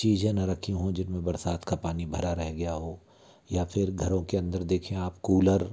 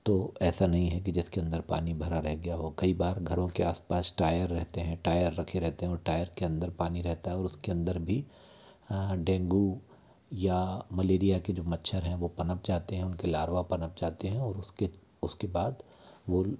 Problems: none marked